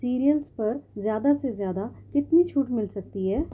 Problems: background sounds at intervals, low volume